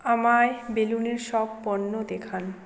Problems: background sounds at intervals